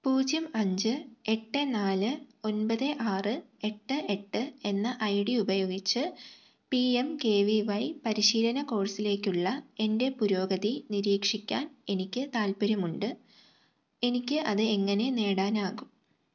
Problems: low volume